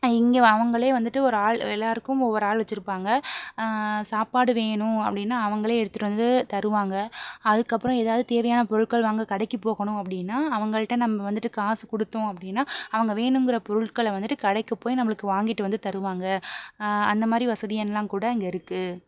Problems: none marked